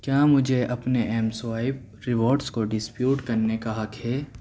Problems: none marked